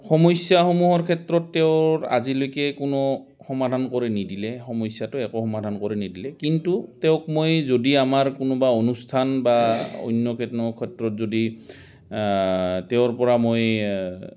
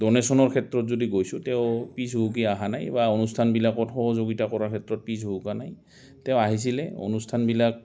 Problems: constant background noise